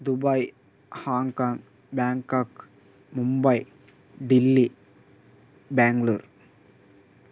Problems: constant background noise